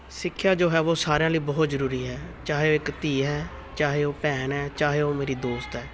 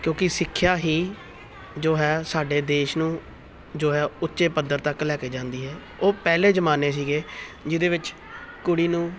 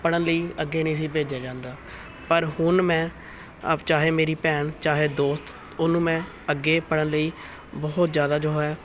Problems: continuous background conversations